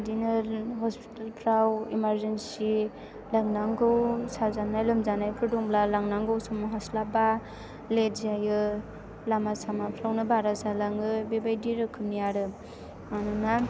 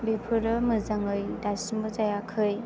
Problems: background sounds at intervals